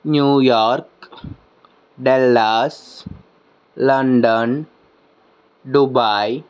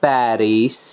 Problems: background sounds at intervals